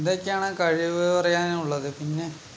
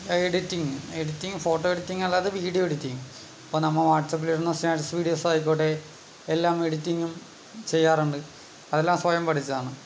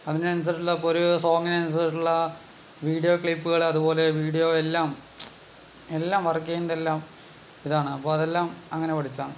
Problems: background sounds at intervals